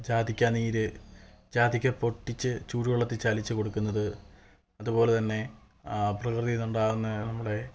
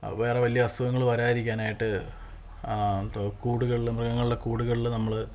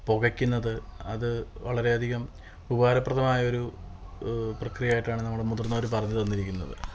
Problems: constant background noise